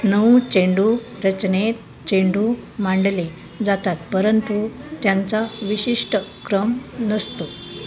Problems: constant background noise, background conversations at intervals